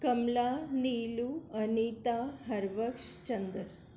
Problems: constant background noise